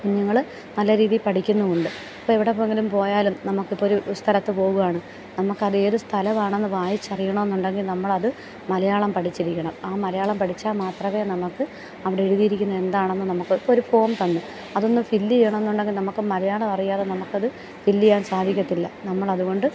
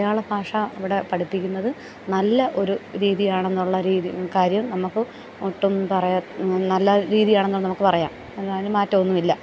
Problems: continuous background conversations